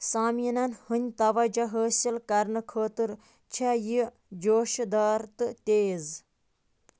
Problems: background sounds at intervals